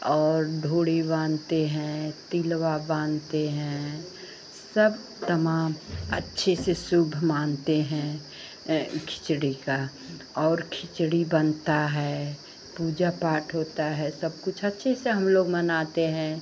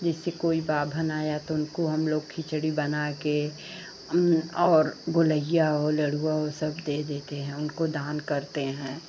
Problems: constant background noise